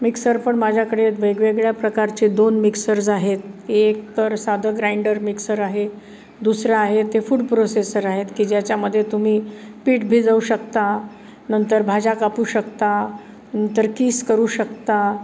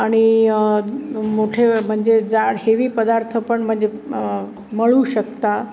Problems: none marked